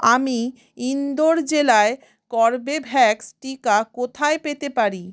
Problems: none marked